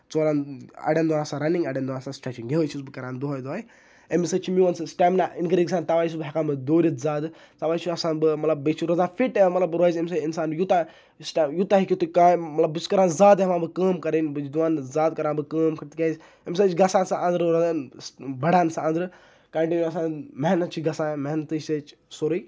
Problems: none marked